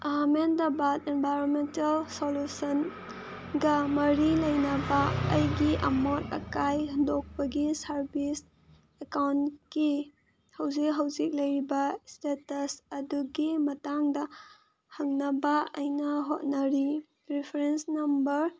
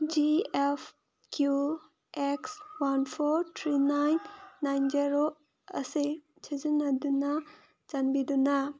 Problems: none marked